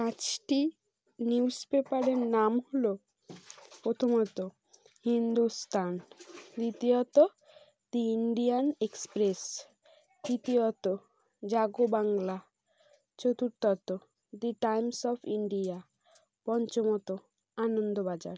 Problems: background sounds at intervals